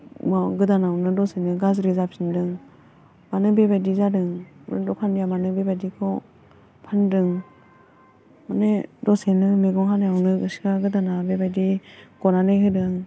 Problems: constant background noise